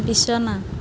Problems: constant background noise